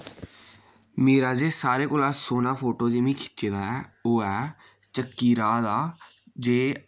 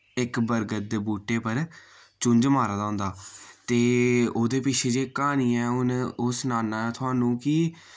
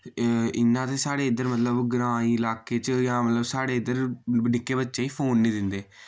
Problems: none marked